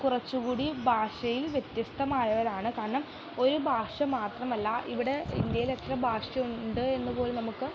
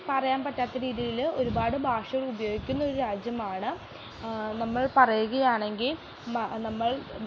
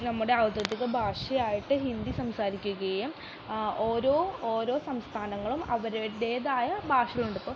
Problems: constant background noise